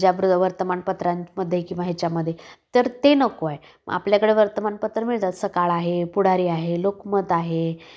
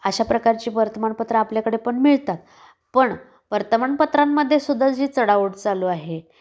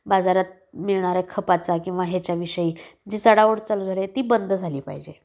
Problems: constant background noise